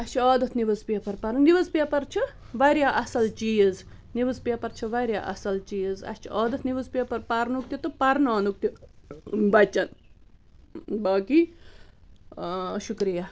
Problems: constant background noise